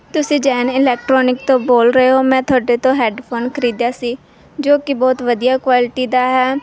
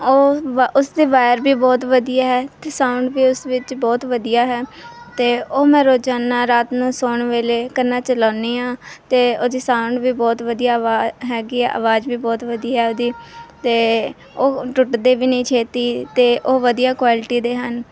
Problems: none marked